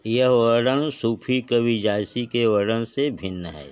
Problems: constant background noise